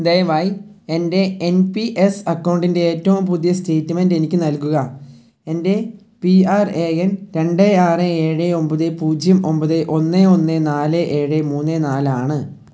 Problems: low volume